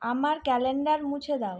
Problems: background sounds at intervals